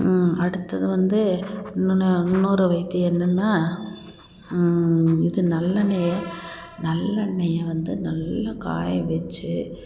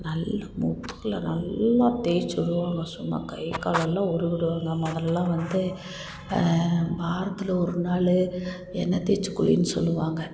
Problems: constant background noise